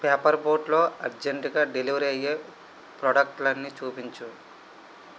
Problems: constant background noise